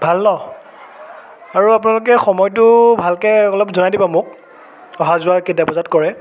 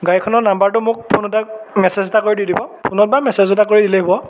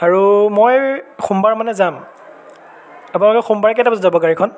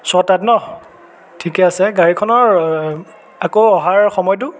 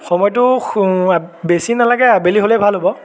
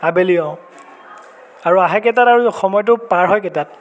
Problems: constant background noise, continuous background conversations